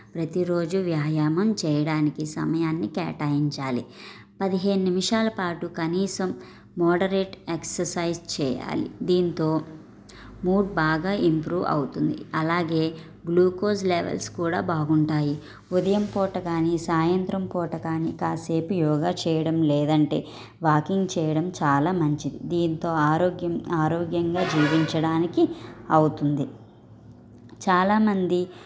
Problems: background sounds at intervals, low volume